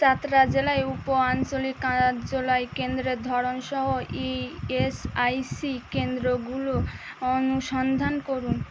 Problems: constant background noise